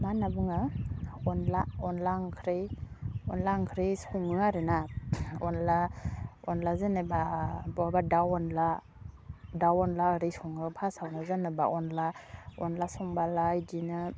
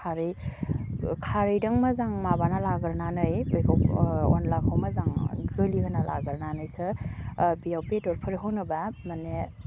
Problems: low volume